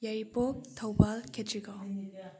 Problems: low volume